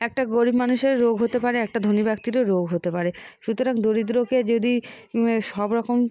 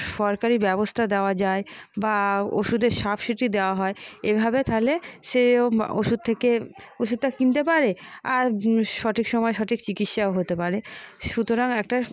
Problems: background conversations at intervals